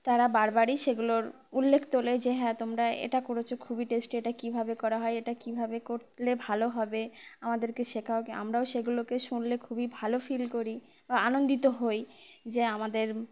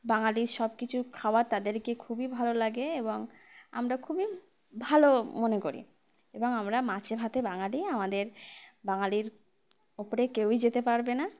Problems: constant background noise, background conversations at intervals